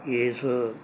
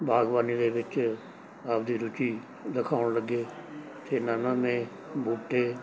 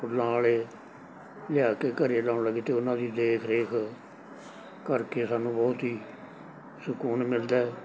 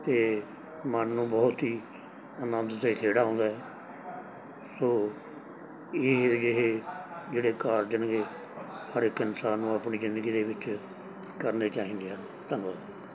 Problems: background sounds at intervals, background conversations at intervals